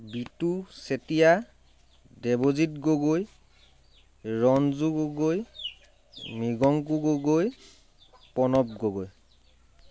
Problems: constant background noise